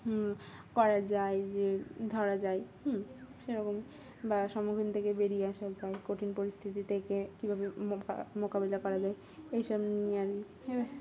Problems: constant background noise